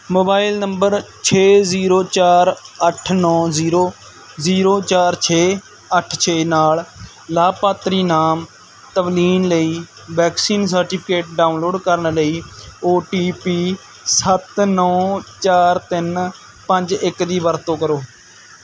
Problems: none marked